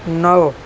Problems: constant background noise